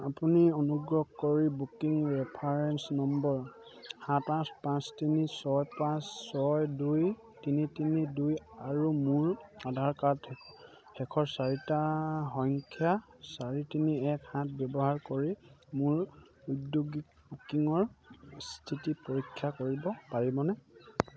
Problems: none marked